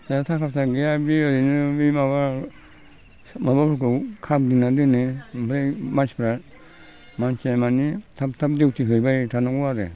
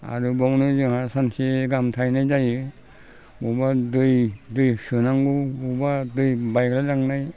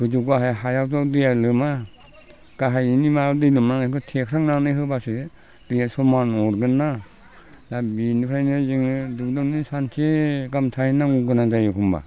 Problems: low volume